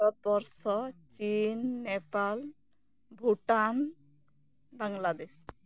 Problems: none marked